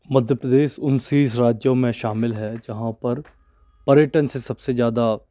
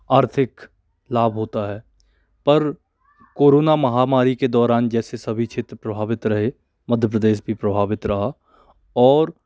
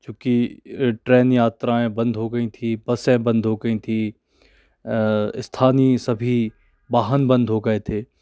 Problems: none marked